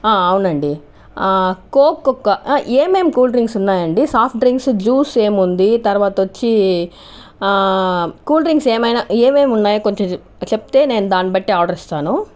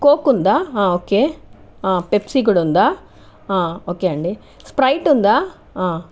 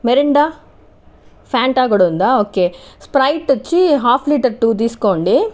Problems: none marked